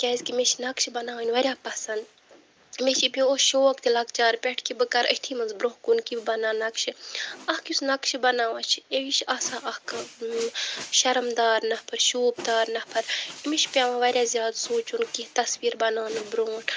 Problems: none marked